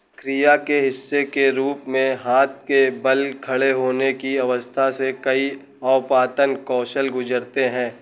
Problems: none marked